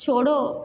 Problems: constant background noise